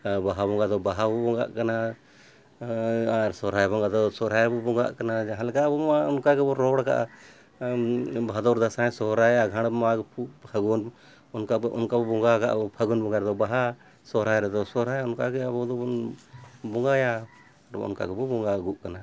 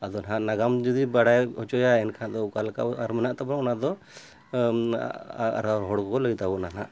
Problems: none marked